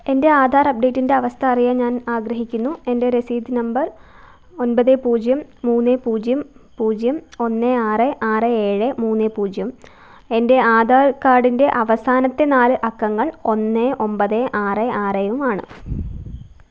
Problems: none marked